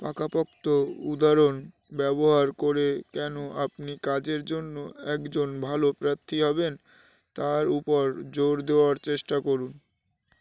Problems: constant background noise